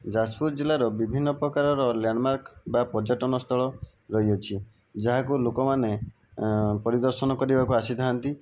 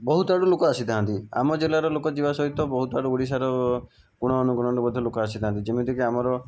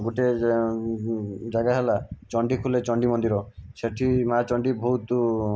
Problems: background sounds at intervals